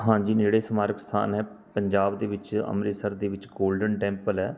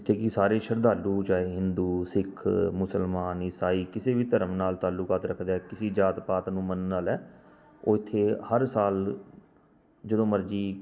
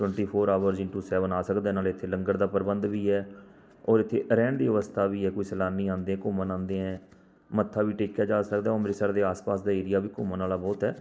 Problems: constant background noise